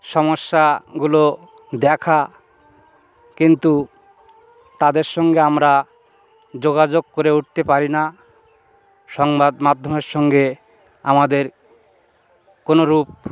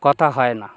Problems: background sounds at intervals